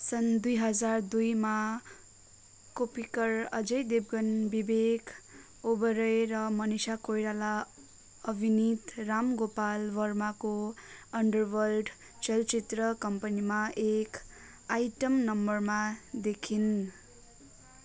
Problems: continuous background conversations